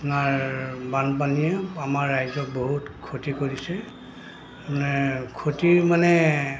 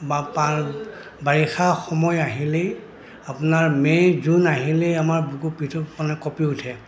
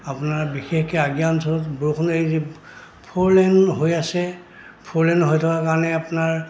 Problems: constant background noise, background conversations at intervals